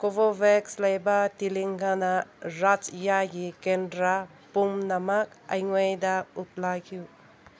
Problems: constant background noise